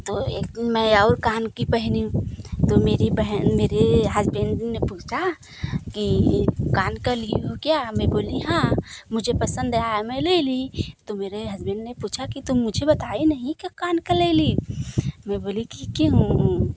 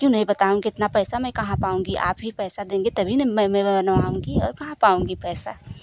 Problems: none marked